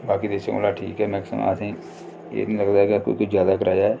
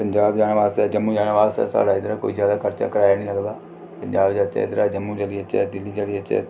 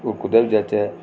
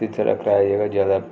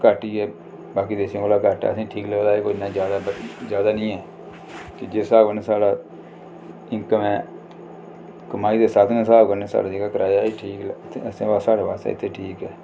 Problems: none marked